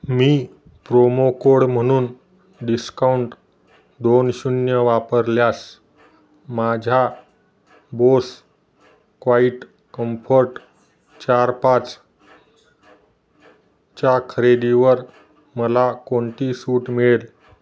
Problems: none marked